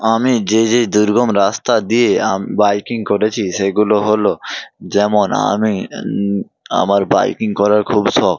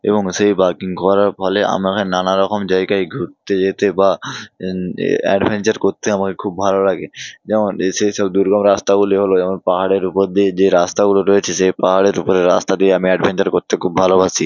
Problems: background sounds at intervals